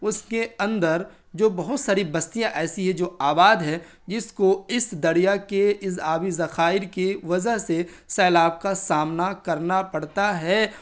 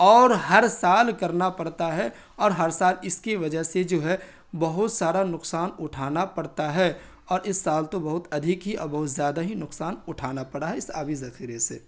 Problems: constant background noise